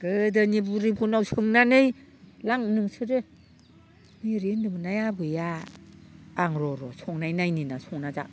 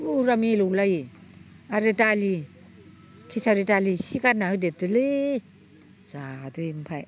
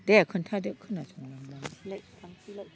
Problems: none marked